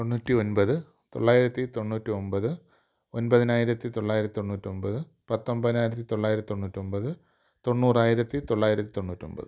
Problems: low volume